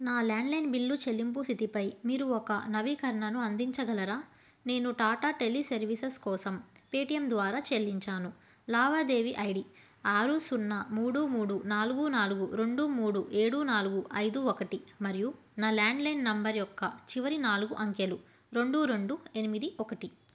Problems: none marked